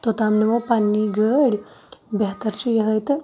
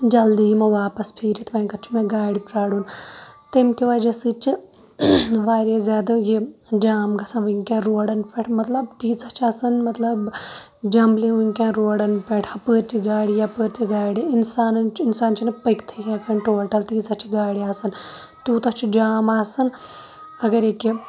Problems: constant background noise